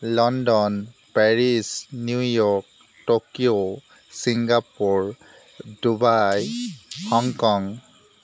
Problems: background sounds at intervals